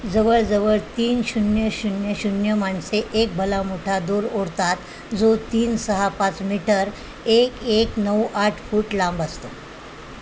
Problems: constant background noise